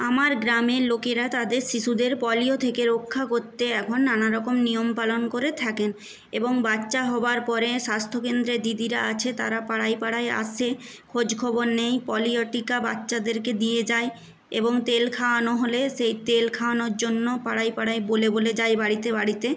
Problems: background sounds at intervals